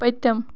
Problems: background sounds at intervals